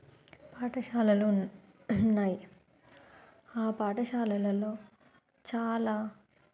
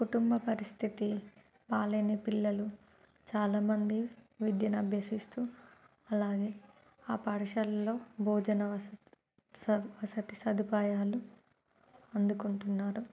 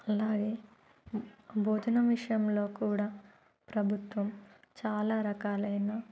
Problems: background sounds at intervals, low volume